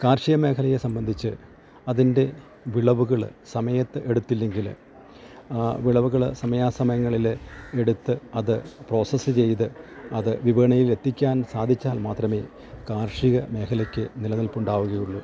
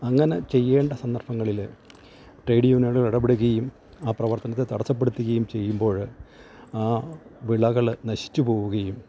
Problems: background sounds at intervals